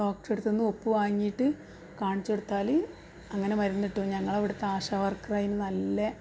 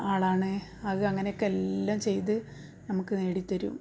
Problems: background sounds at intervals, low volume